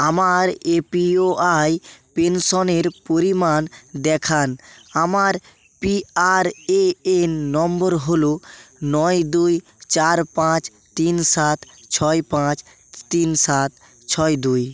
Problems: constant background noise, continuous background conversations